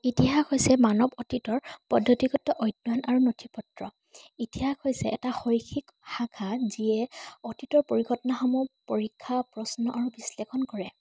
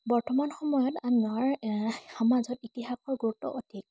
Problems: constant background noise